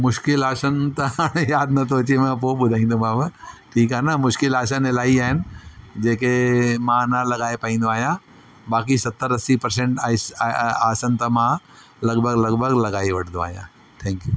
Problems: constant background noise